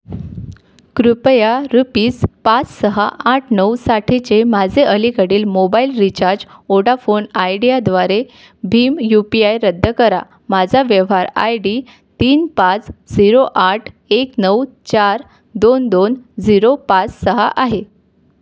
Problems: none marked